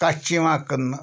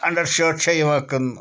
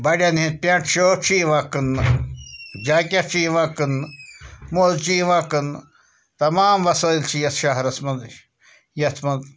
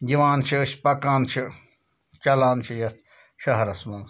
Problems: constant background noise